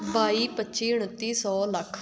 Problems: background sounds at intervals